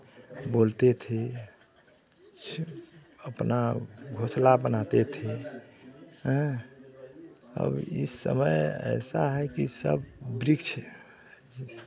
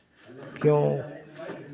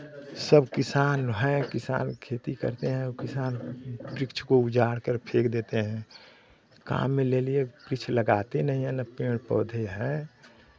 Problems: constant background noise, background conversations at intervals